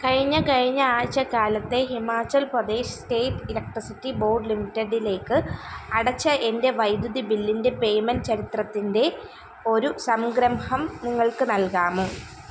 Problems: constant background noise